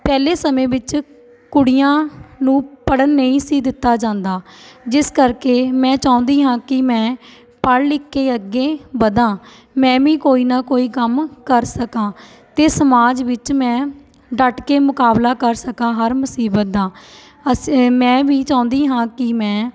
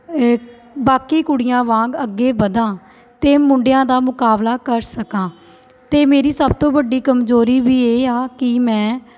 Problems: none marked